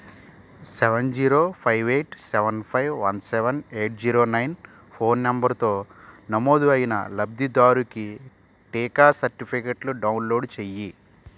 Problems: constant background noise